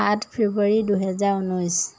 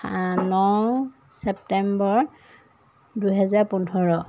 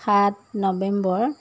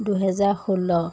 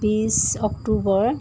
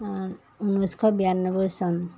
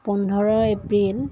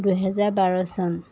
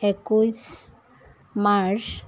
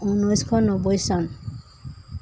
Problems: background sounds at intervals